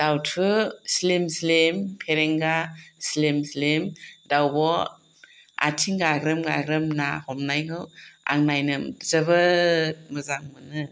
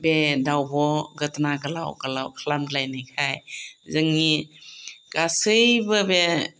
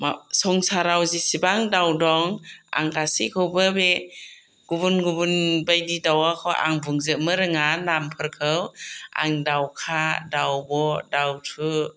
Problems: none marked